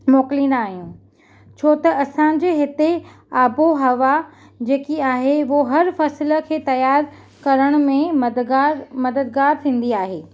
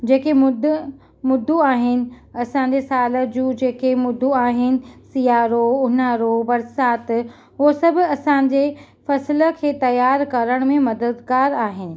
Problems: none marked